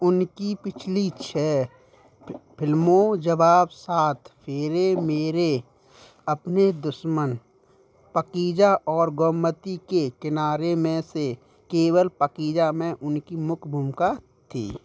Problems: background sounds at intervals